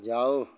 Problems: none marked